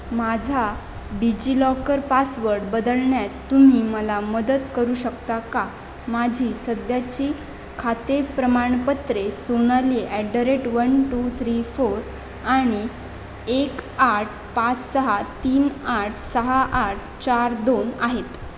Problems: constant background noise